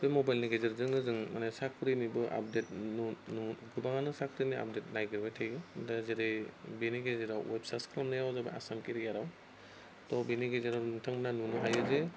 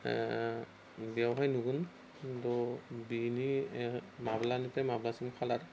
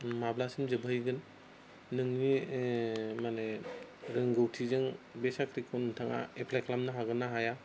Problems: constant background noise